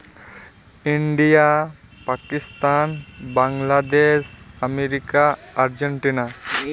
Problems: constant background noise, continuous background conversations